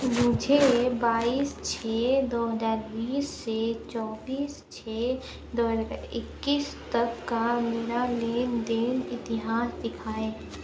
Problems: low volume